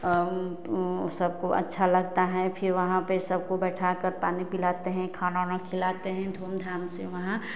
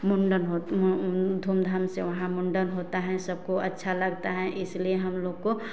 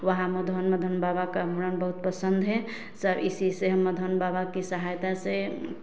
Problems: none marked